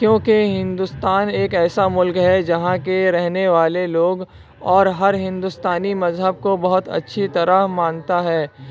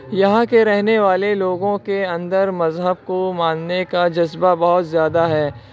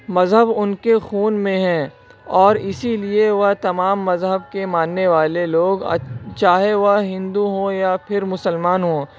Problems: constant background noise